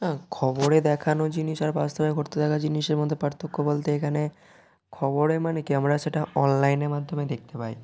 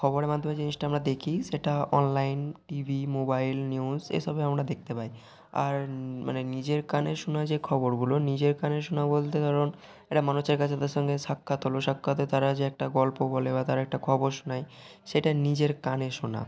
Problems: constant background noise, continuous background conversations